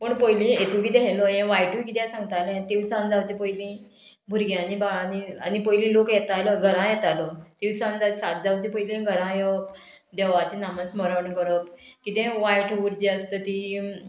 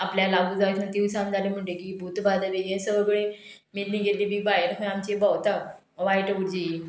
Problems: background sounds at intervals